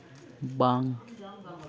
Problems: background conversations at intervals